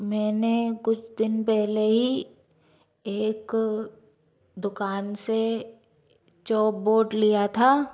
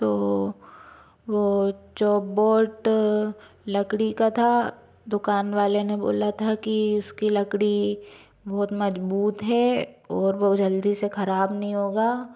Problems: none marked